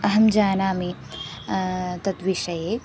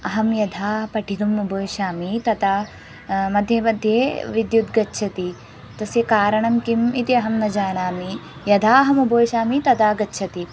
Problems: background sounds at intervals